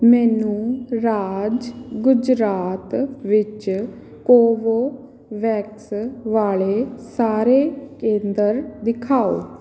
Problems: background sounds at intervals